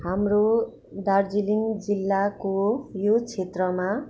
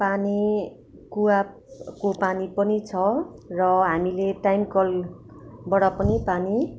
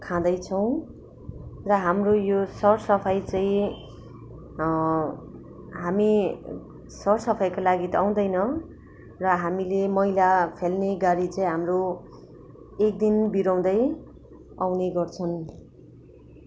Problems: background sounds at intervals